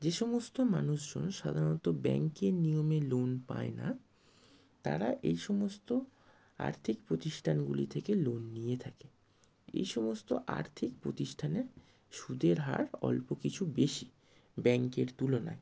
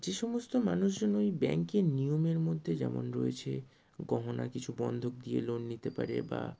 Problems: none marked